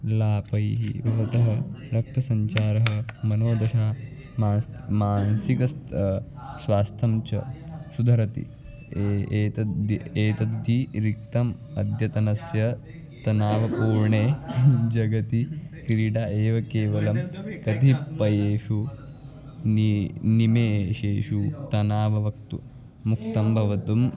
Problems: background sounds at intervals, continuous background conversations